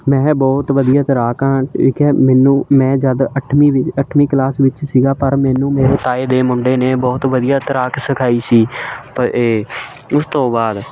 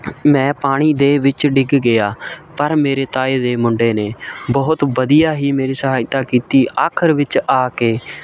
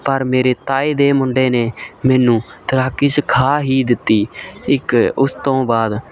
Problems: constant background noise